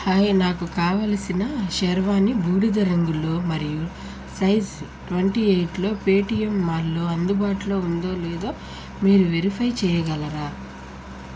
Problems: constant background noise